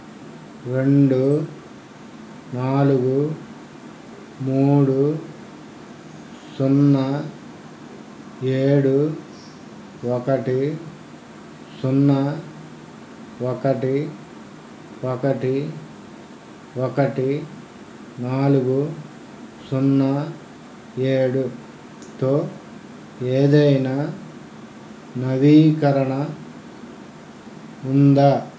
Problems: none marked